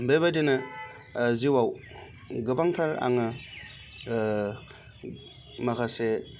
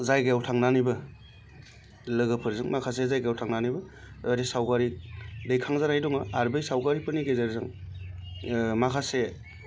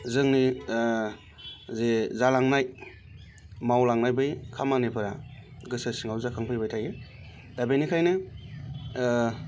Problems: none marked